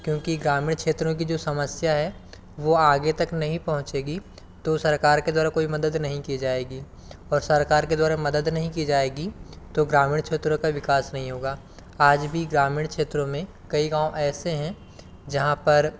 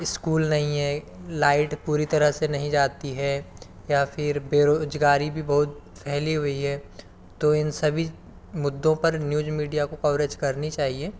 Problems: background sounds at intervals